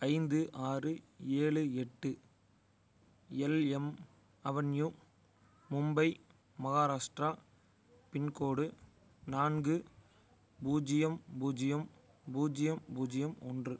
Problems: none marked